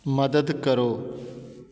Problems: background sounds at intervals